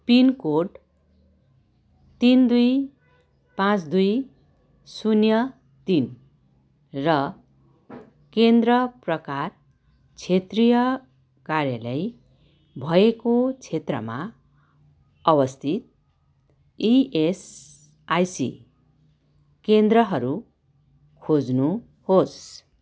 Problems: none marked